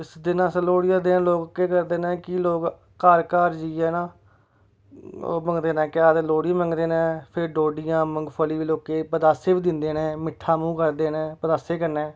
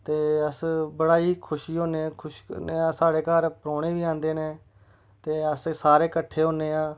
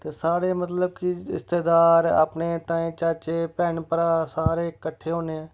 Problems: none marked